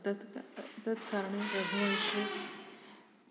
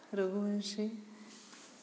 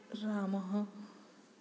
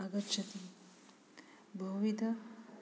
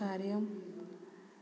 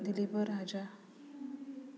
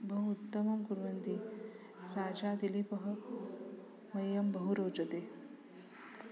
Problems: background sounds at intervals